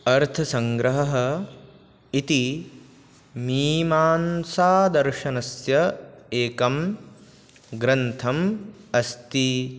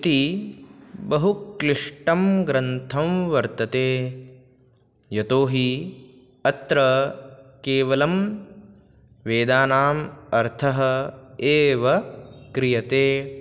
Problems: none marked